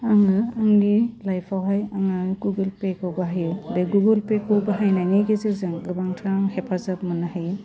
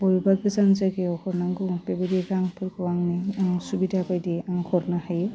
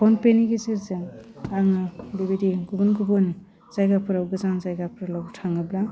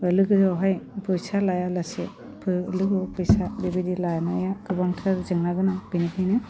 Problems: constant background noise